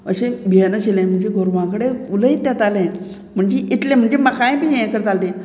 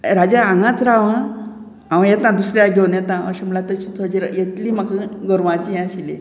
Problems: none marked